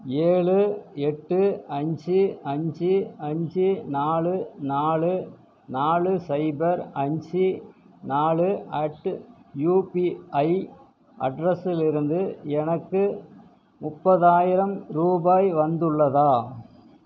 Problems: constant background noise